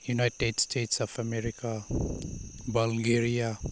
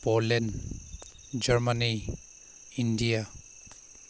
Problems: background sounds at intervals